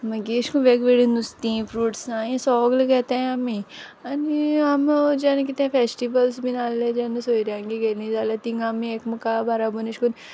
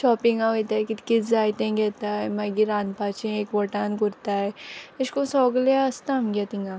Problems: background conversations at intervals